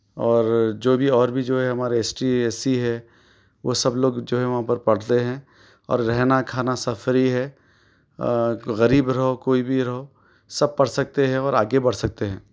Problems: background sounds at intervals